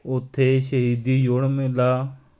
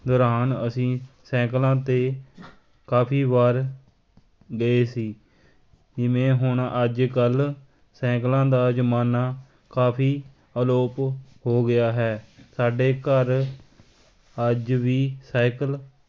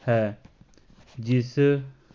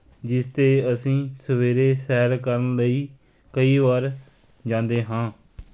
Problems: constant background noise